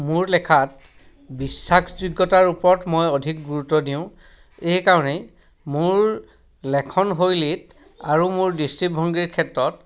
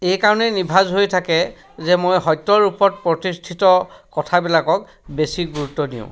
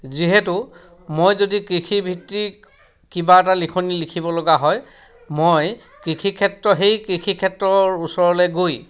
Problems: background sounds at intervals, background conversations at intervals